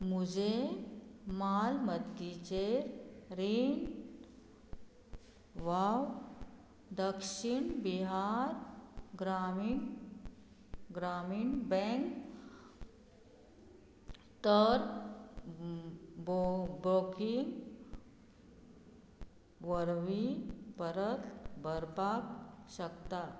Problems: none marked